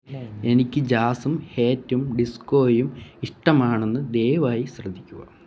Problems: low volume